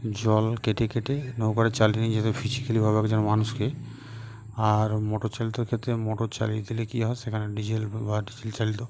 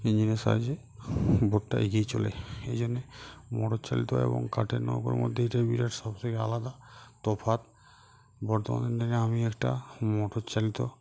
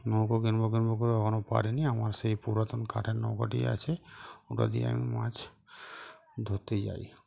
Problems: constant background noise